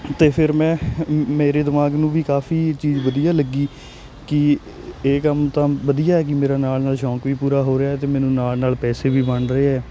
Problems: none marked